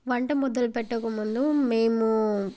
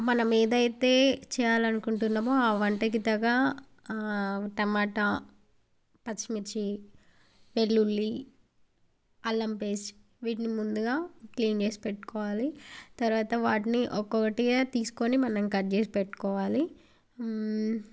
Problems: background sounds at intervals